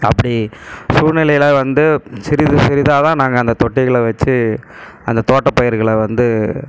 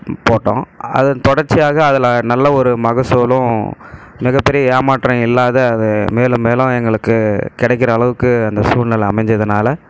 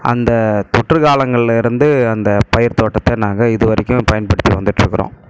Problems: background sounds at intervals